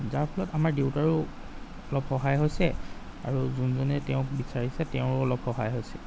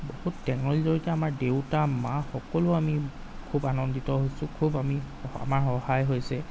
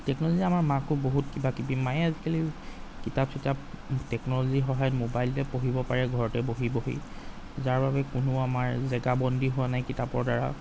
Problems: background sounds at intervals